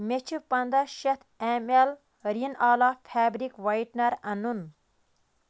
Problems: background sounds at intervals